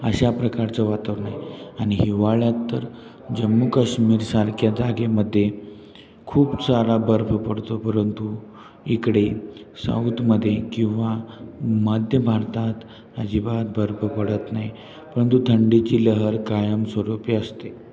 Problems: constant background noise, continuous background conversations